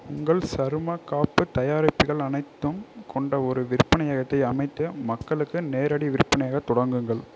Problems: none marked